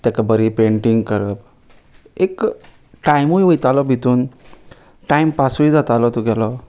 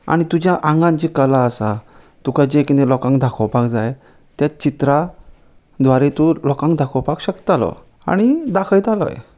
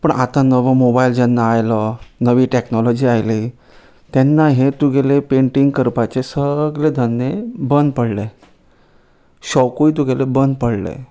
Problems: none marked